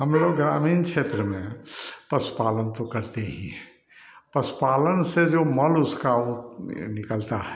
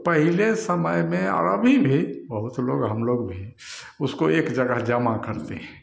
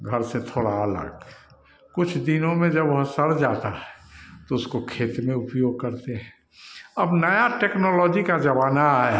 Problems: none marked